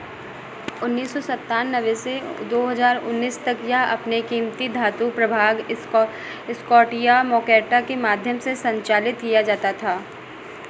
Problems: constant background noise